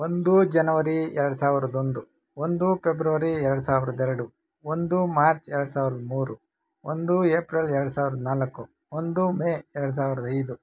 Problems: none marked